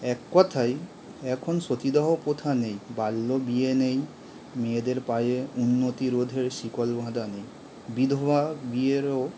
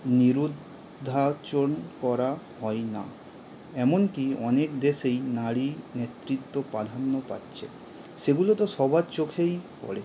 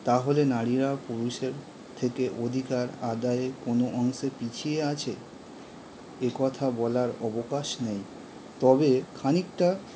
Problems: constant background noise